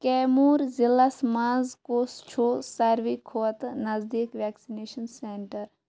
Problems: constant background noise